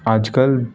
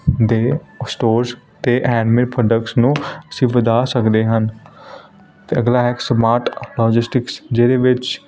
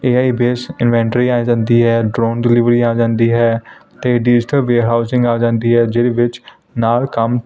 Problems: constant background noise